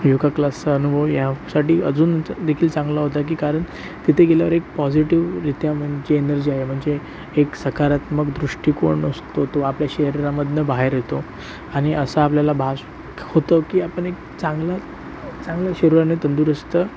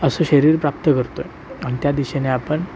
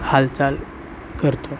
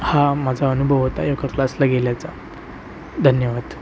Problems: constant background noise